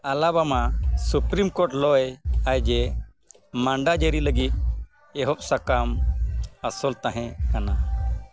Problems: constant background noise